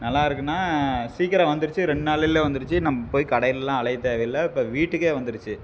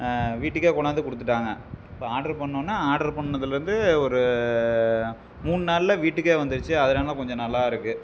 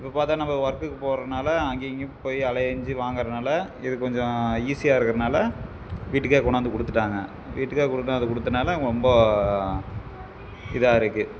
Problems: none marked